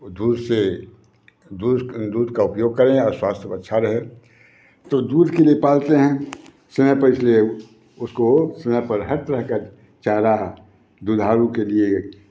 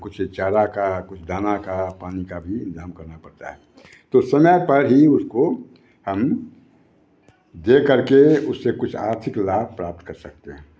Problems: background sounds at intervals, background conversations at intervals